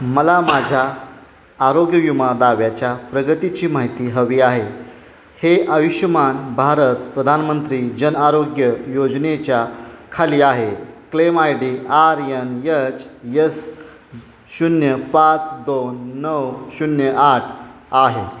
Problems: constant background noise